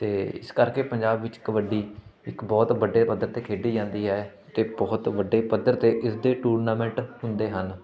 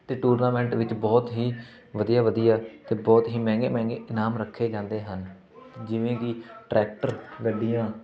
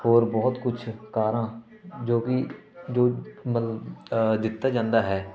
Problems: continuous background conversations